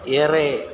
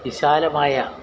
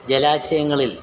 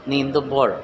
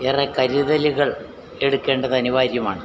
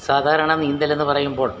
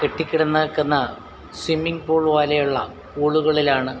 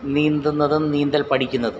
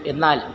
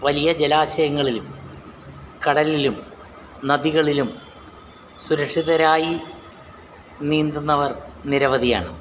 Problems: none marked